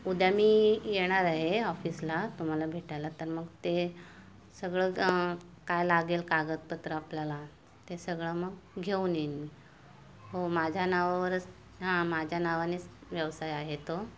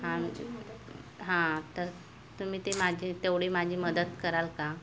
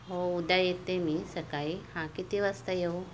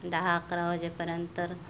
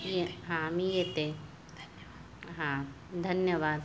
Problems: constant background noise, continuous background conversations